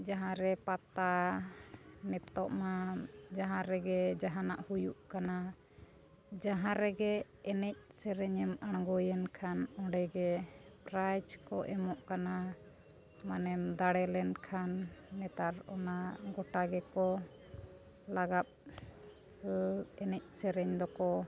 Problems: constant background noise